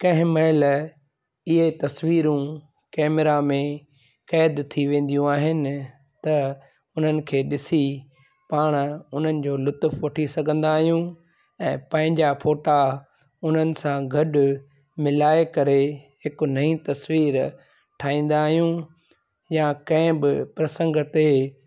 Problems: constant background noise